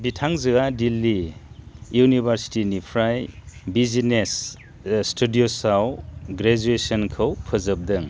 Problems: none marked